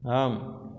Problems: none marked